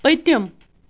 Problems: constant background noise